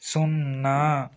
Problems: constant background noise